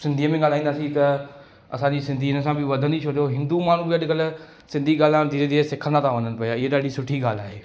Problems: constant background noise, echo